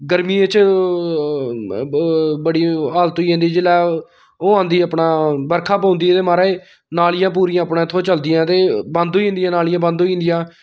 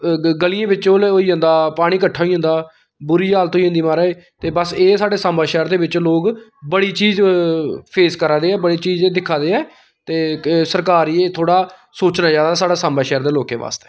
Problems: background sounds at intervals